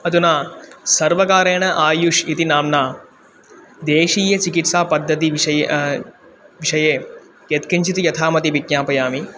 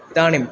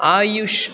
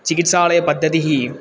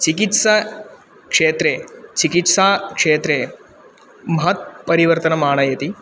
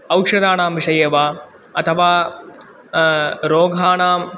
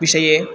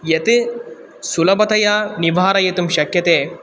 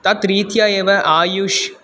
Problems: constant background noise